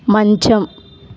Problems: none marked